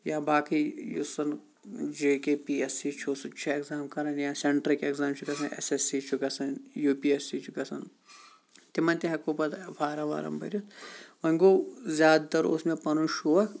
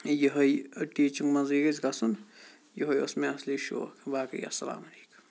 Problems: none marked